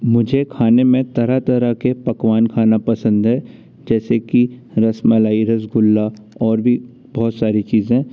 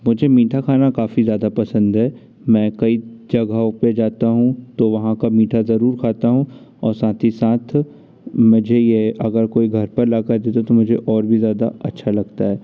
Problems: none marked